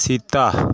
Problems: constant background noise